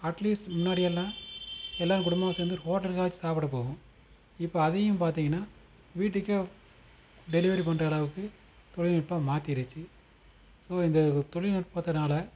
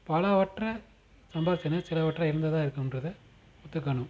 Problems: constant background noise